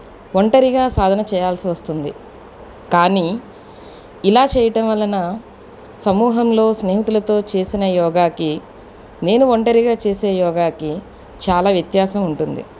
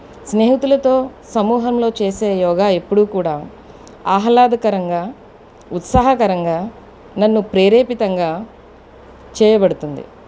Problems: background conversations at intervals